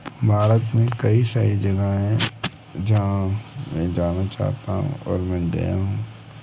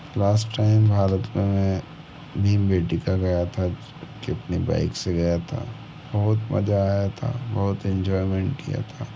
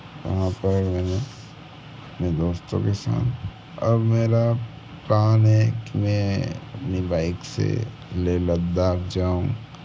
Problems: background sounds at intervals